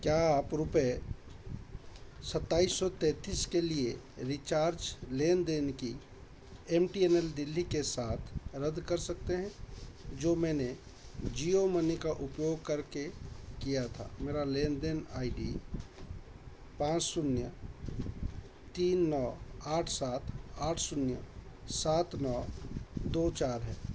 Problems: constant background noise